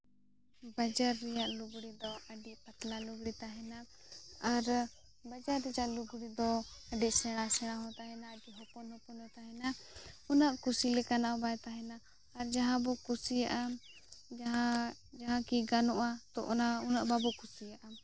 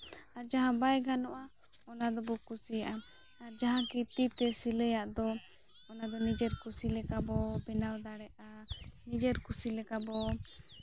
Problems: background sounds at intervals, low volume